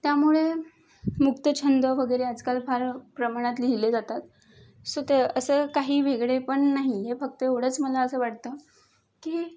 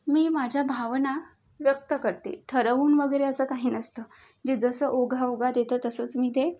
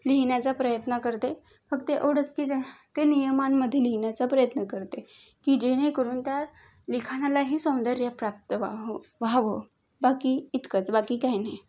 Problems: background sounds at intervals